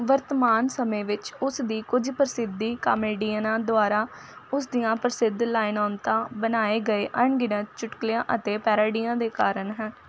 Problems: constant background noise